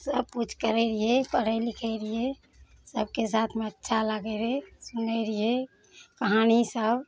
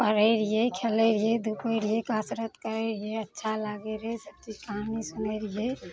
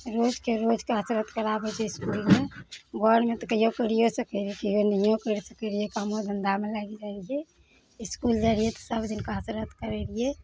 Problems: none marked